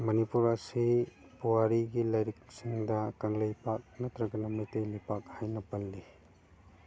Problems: background sounds at intervals